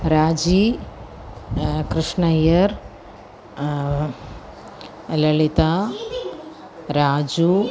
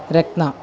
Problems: constant background noise, continuous background conversations